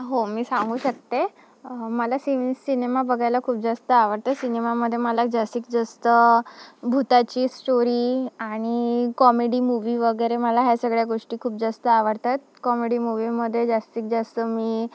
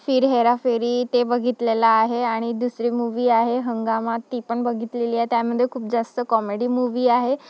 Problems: background sounds at intervals